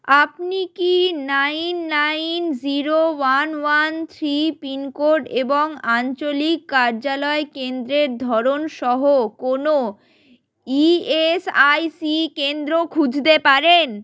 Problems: none marked